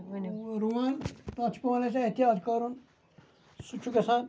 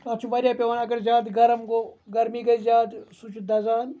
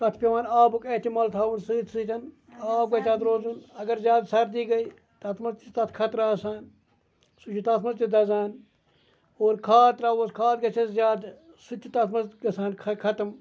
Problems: background conversations at intervals